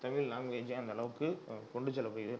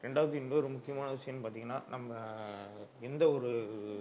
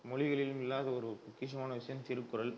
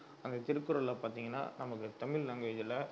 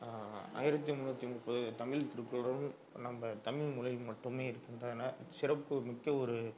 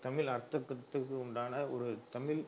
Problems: none marked